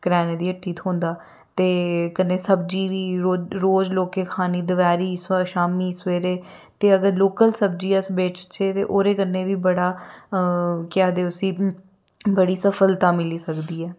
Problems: none marked